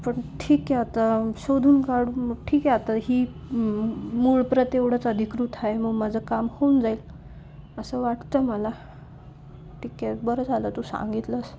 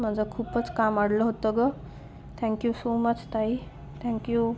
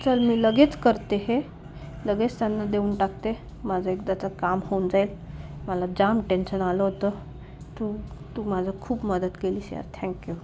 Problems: constant background noise, low volume